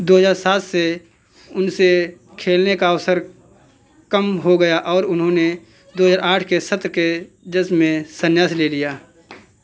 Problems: constant background noise, background conversations at intervals